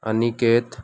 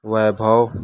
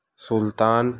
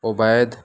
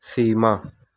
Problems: none marked